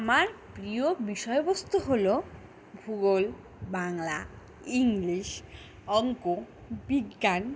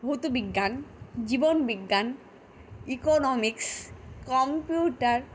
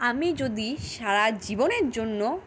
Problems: constant background noise